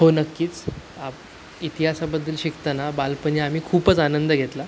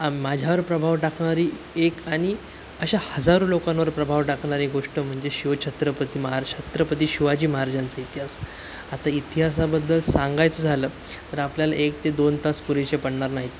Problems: constant background noise, background conversations at intervals